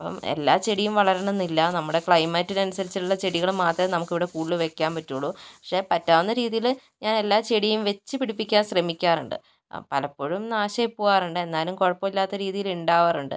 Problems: none marked